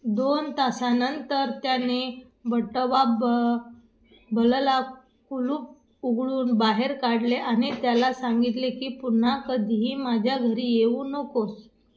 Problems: none marked